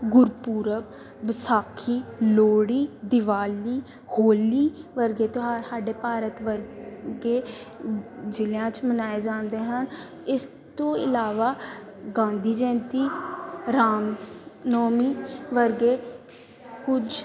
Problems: constant background noise, continuous background conversations